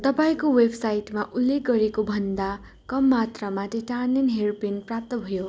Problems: none marked